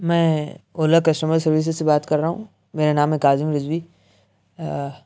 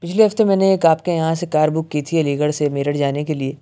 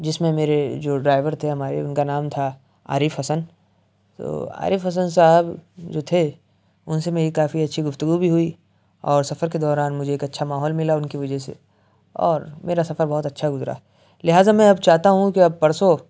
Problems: none marked